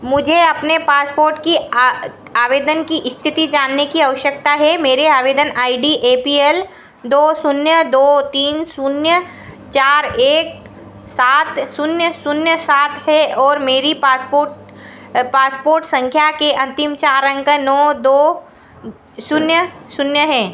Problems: echo